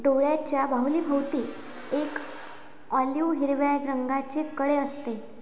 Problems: none marked